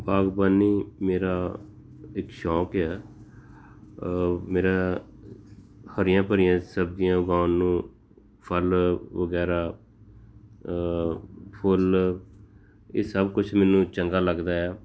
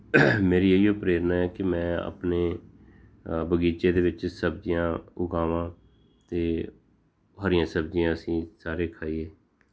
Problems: background sounds at intervals